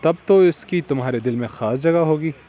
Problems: constant background noise